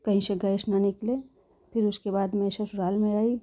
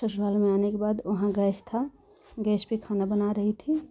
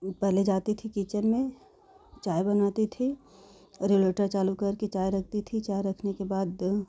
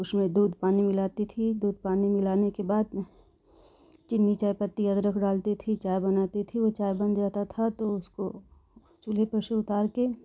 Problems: none marked